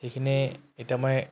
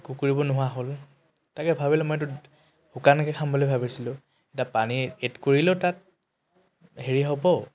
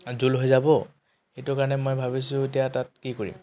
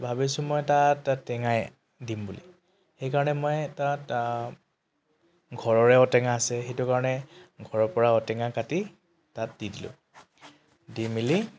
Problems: constant background noise